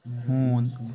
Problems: constant background noise, low volume